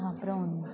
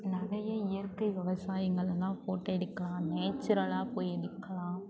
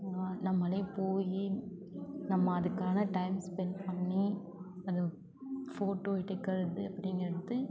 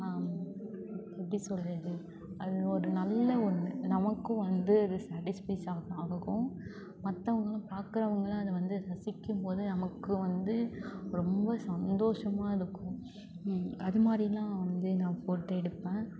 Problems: constant background noise, low volume